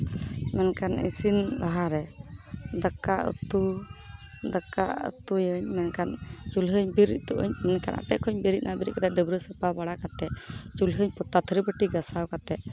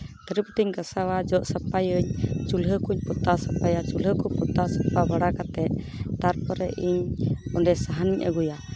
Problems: background sounds at intervals